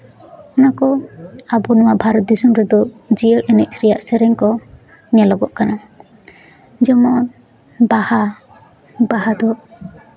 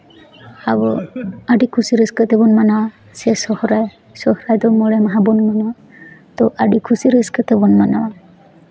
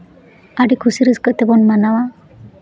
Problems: background conversations at intervals